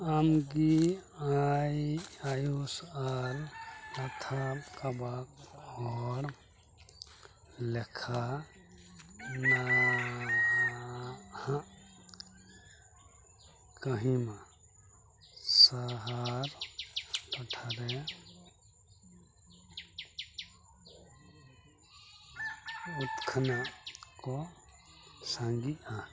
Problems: constant background noise, continuous background conversations, low volume